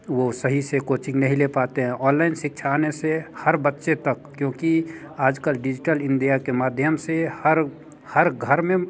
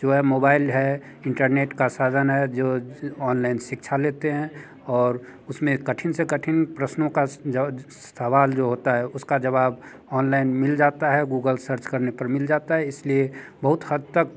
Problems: none marked